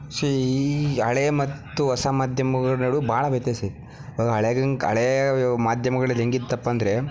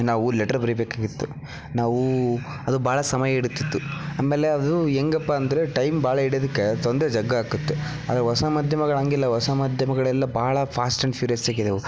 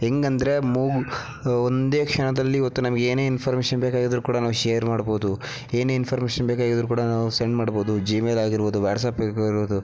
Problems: background sounds at intervals